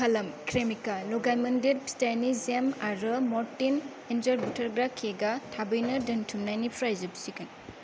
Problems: low volume